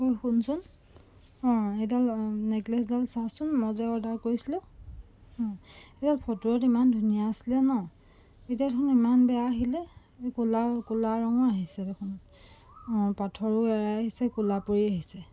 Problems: background sounds at intervals